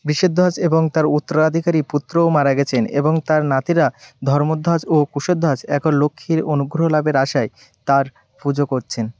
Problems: none marked